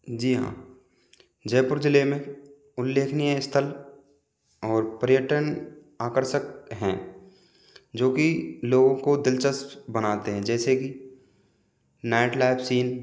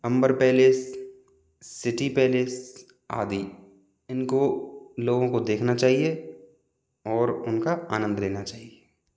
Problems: background sounds at intervals